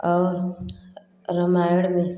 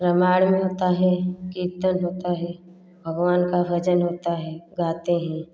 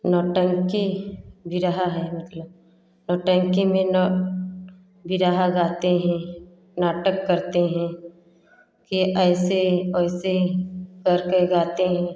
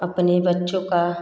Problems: none marked